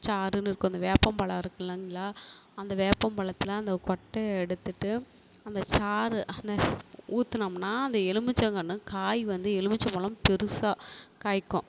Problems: constant background noise